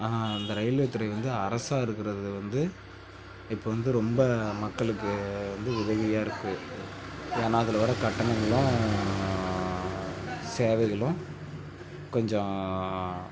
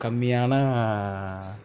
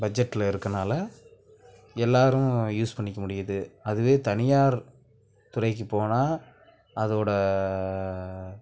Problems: background conversations at intervals